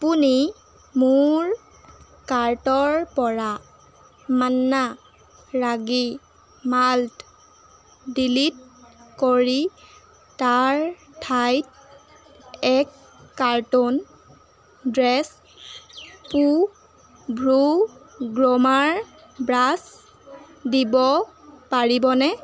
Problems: constant background noise